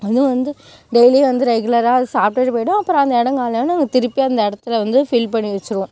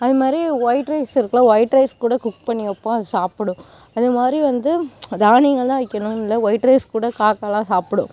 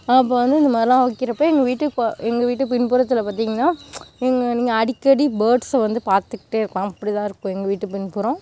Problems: background sounds at intervals